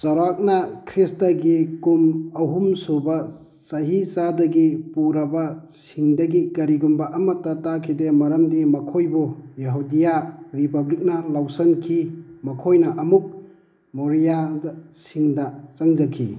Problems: constant background noise